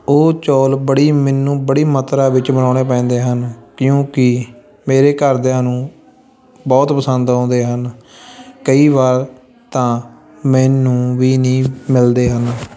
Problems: background sounds at intervals, continuous background conversations